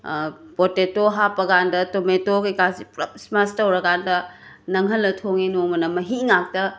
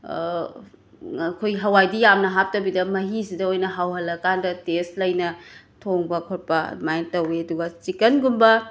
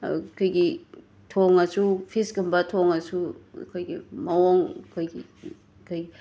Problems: background sounds at intervals